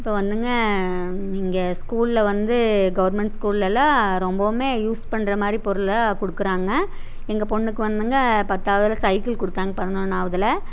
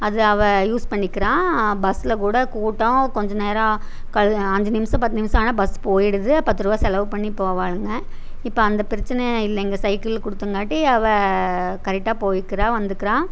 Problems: none marked